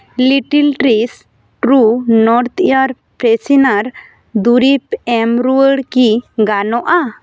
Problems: none marked